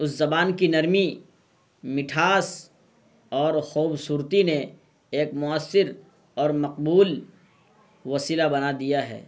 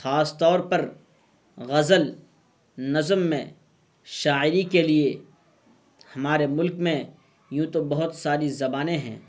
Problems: constant background noise